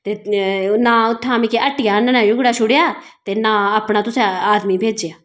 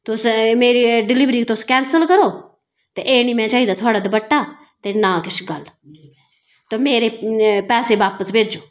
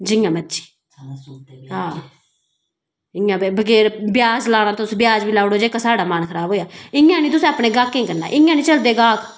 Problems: background sounds at intervals